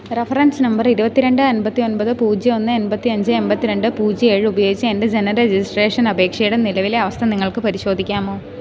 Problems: none marked